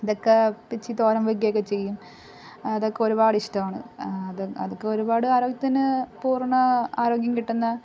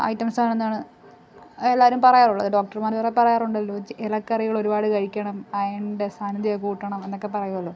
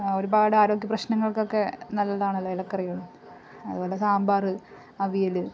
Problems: background sounds at intervals